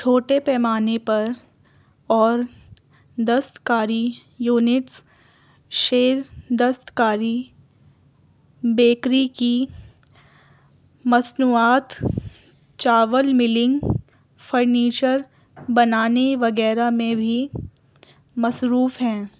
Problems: none marked